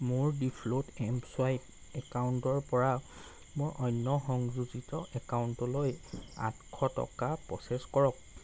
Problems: none marked